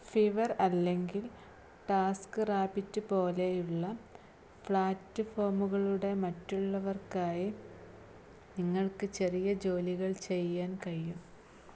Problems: low volume